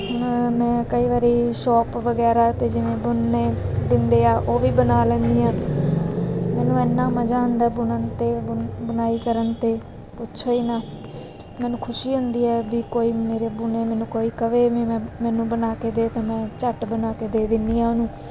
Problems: background sounds at intervals